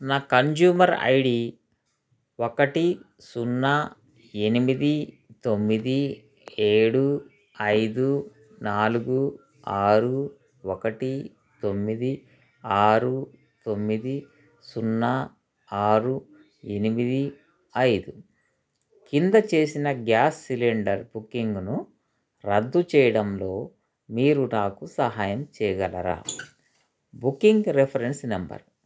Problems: constant background noise, background conversations at intervals